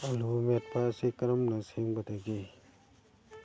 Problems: low volume